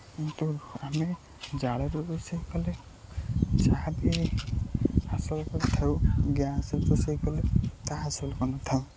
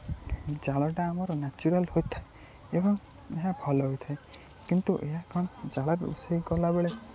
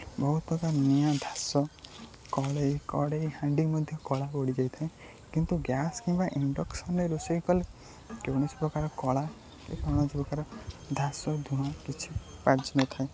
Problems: none marked